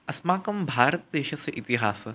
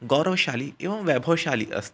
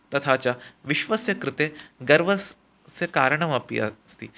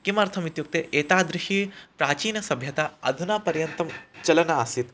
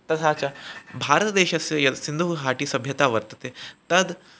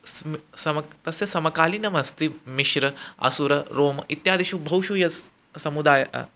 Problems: none marked